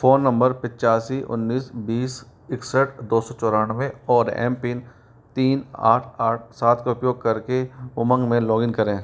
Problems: background sounds at intervals